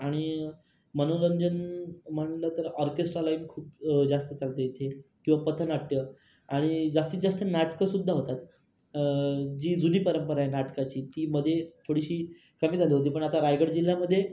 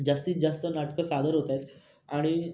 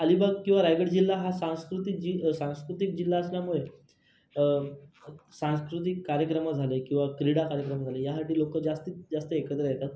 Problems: background sounds at intervals, background conversations at intervals